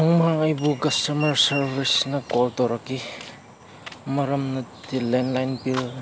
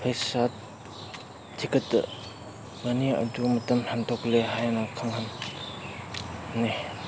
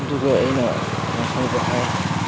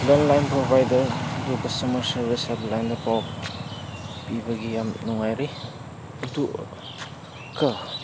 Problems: background sounds at intervals